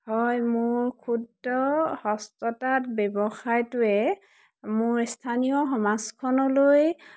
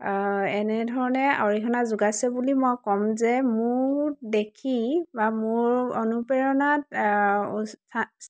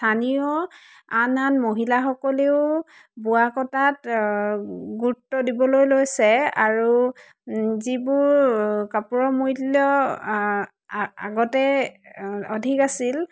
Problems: background sounds at intervals